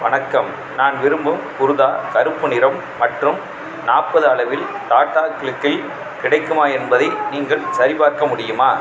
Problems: background sounds at intervals, continuous background conversations